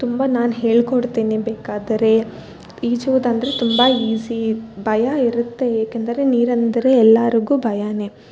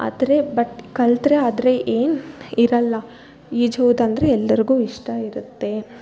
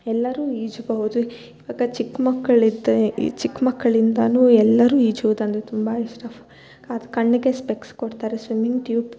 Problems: none marked